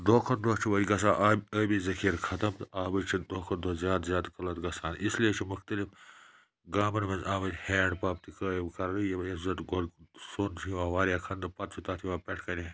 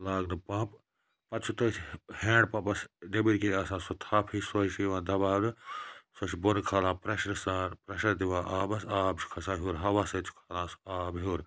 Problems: none marked